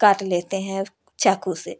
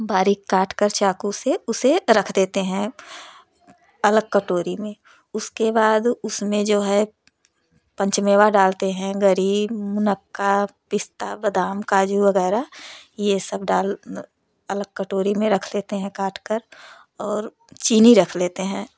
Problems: none marked